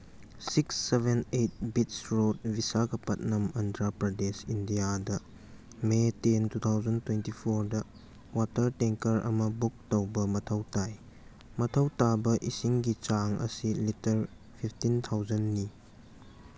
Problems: none marked